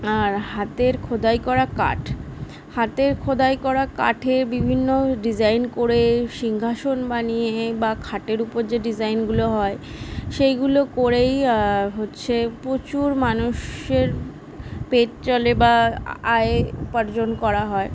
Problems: none marked